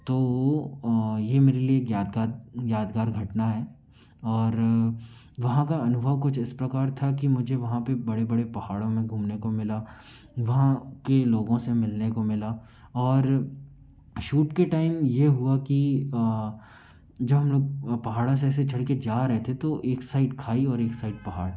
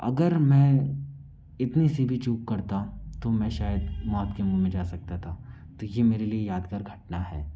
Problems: background sounds at intervals